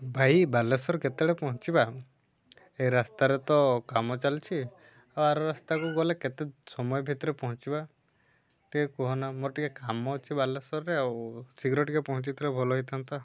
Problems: low volume